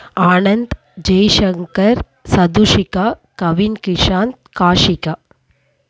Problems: none marked